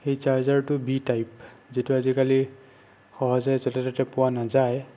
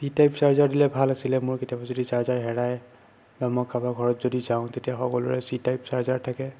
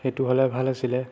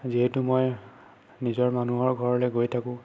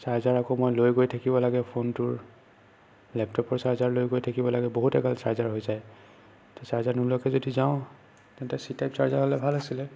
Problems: constant background noise